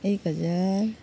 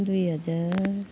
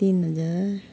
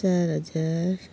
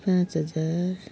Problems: none marked